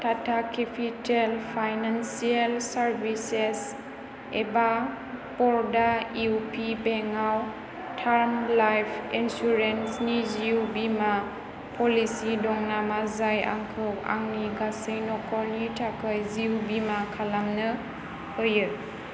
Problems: constant background noise